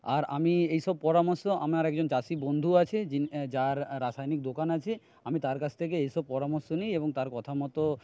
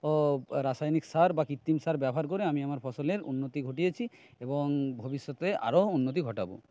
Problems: none marked